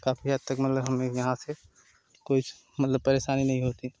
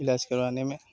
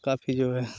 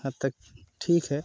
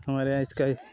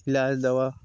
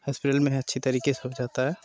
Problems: constant background noise